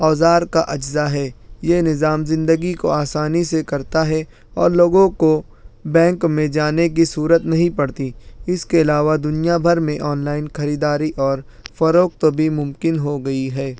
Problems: none marked